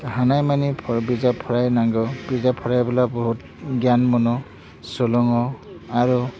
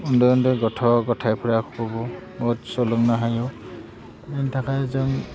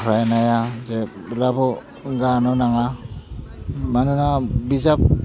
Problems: constant background noise